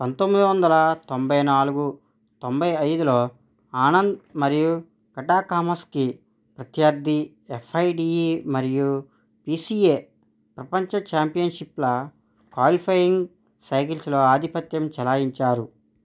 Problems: none marked